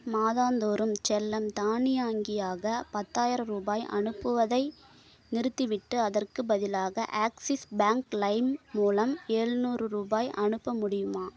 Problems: none marked